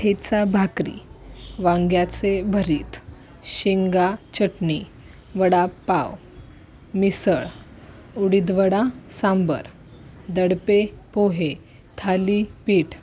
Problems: constant background noise, continuous background conversations